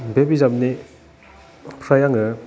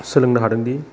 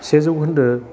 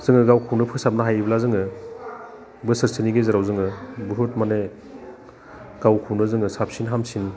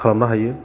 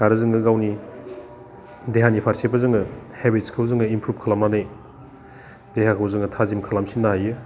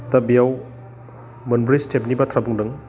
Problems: none marked